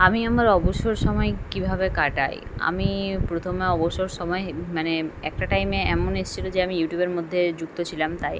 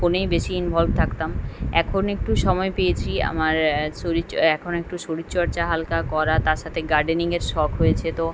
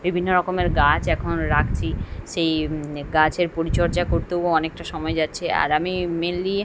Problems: constant background noise